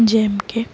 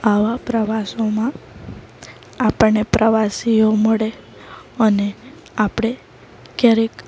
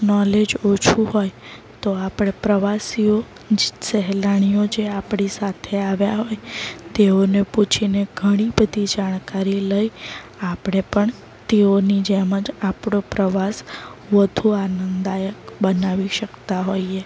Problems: background sounds at intervals